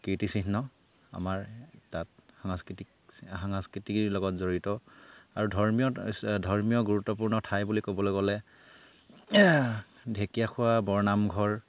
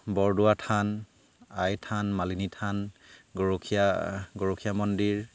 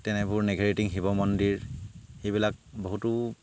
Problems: none marked